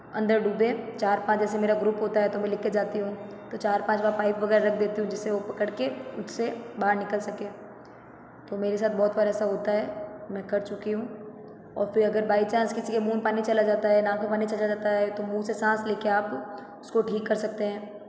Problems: background sounds at intervals